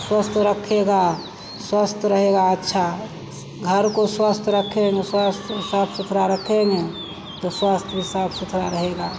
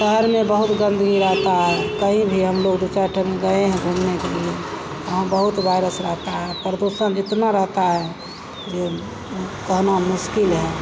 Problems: constant background noise